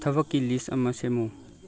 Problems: background conversations at intervals